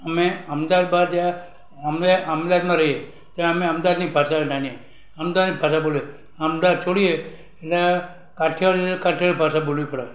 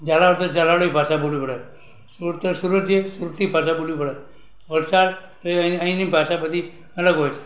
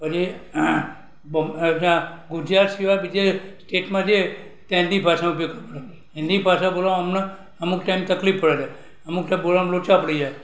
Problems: none marked